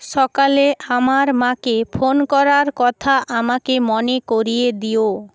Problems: background sounds at intervals